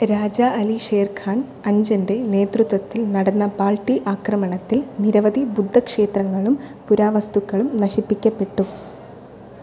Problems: none marked